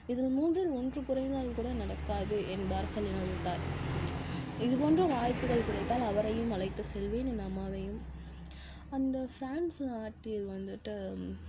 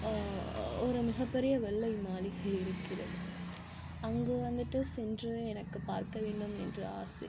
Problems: constant background noise, low volume